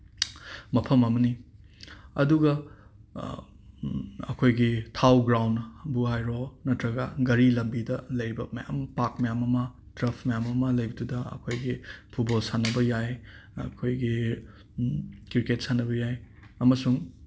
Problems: background sounds at intervals